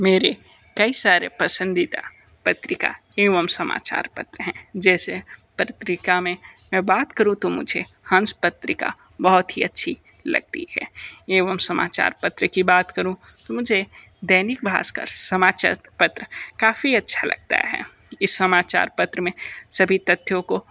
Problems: constant background noise